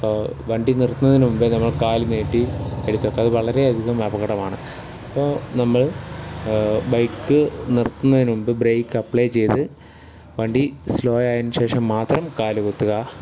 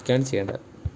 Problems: background sounds at intervals